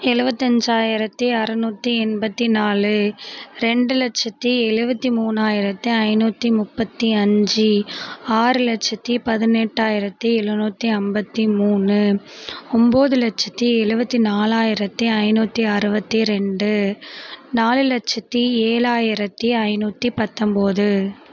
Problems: constant background noise